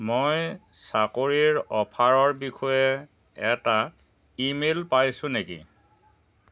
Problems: constant background noise